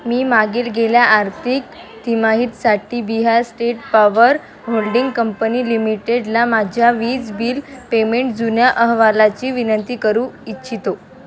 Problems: constant background noise, continuous background conversations